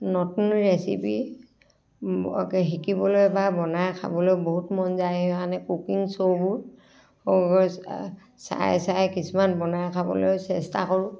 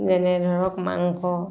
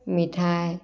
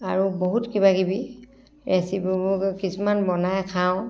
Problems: none marked